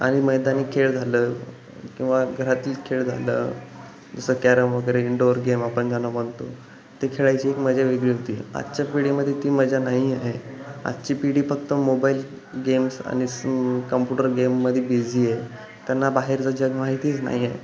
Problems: constant background noise